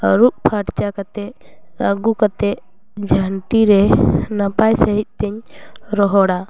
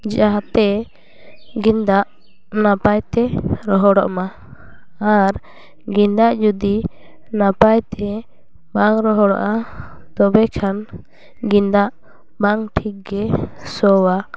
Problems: none marked